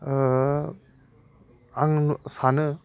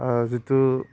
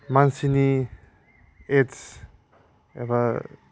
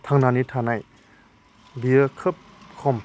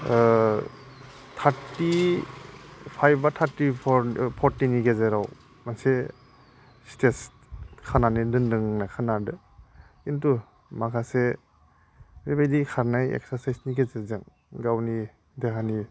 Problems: none marked